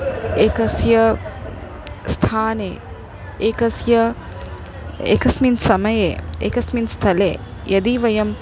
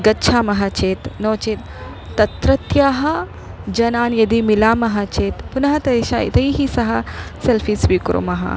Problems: constant background noise, background conversations at intervals